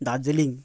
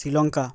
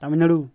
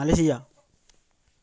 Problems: constant background noise